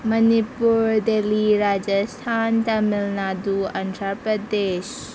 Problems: constant background noise